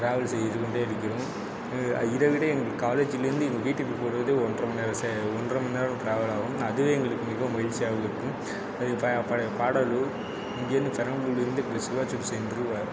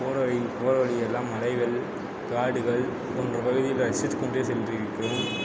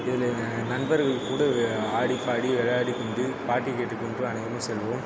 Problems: none marked